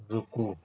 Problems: constant background noise, low volume